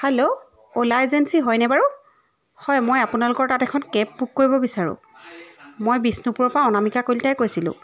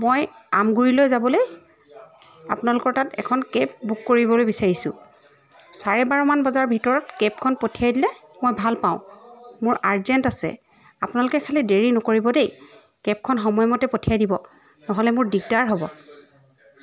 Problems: background sounds at intervals, continuous background conversations